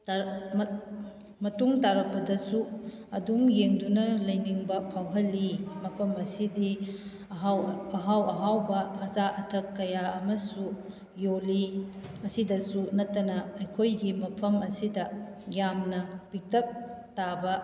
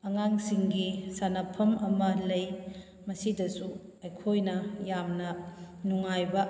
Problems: background sounds at intervals